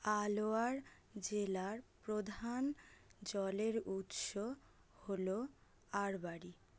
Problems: none marked